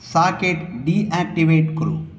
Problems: none marked